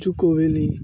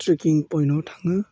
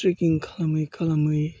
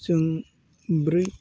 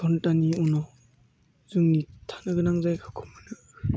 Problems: low volume